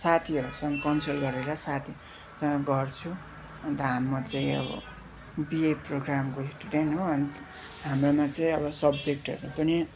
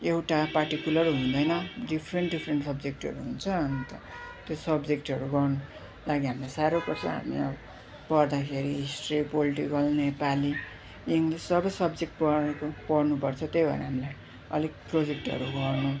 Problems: none marked